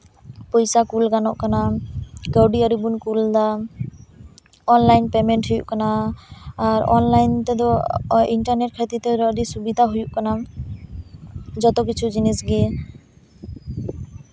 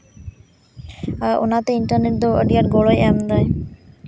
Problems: constant background noise